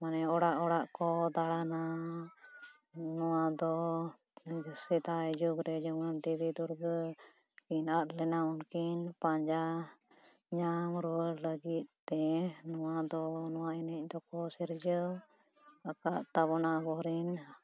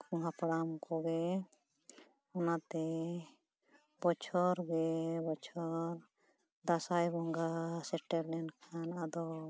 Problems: none marked